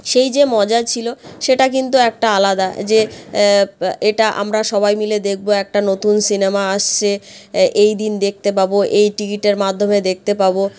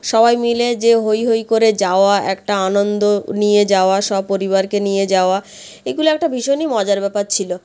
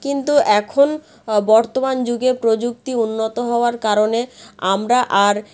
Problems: none marked